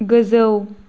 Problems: constant background noise